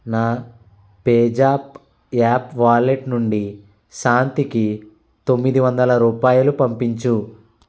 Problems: constant background noise